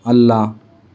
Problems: none marked